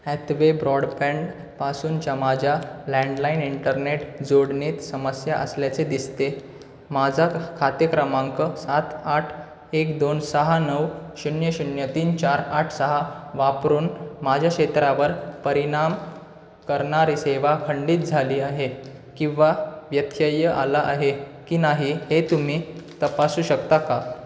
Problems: constant background noise